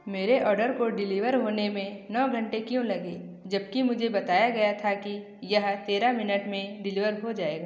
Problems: echo